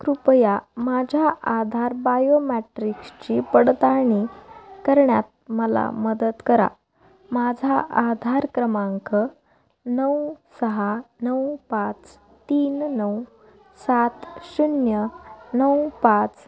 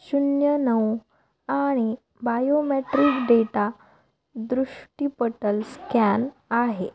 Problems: background sounds at intervals, background conversations at intervals